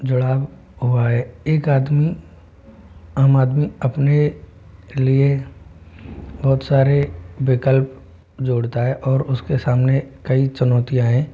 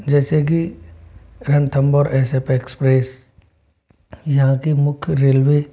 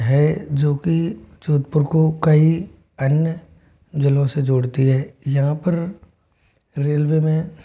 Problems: constant background noise